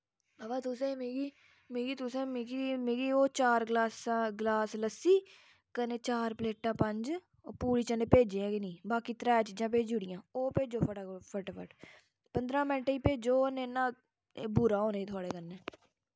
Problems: background sounds at intervals